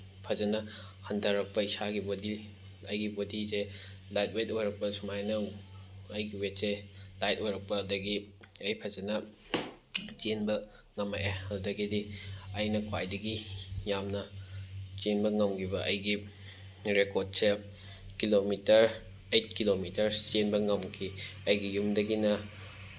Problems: background sounds at intervals